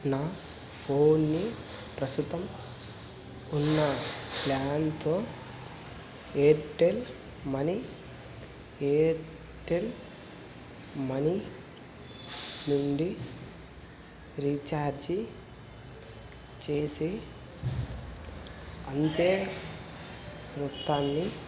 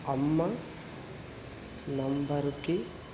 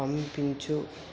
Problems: constant background noise